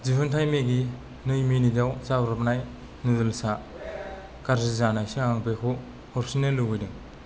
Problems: none marked